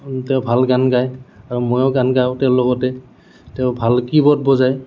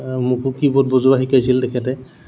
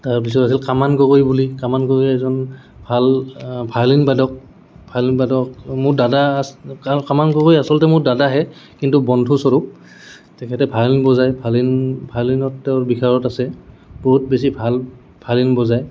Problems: none marked